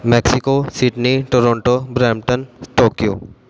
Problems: background sounds at intervals